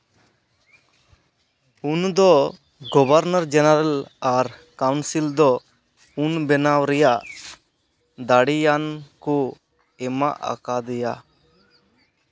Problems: background sounds at intervals